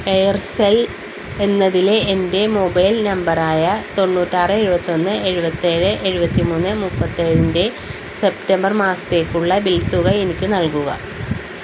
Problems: constant background noise